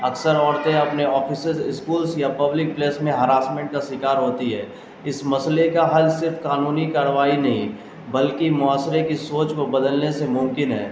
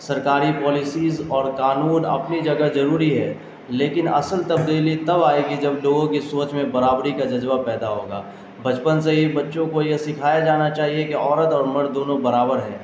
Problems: constant background noise